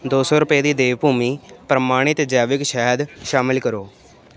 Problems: none marked